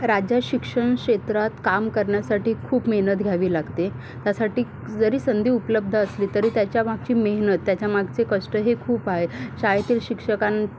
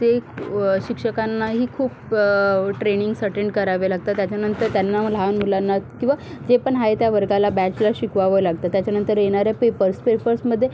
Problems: background sounds at intervals